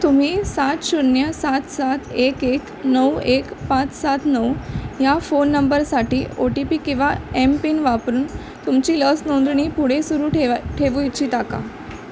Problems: constant background noise, background conversations at intervals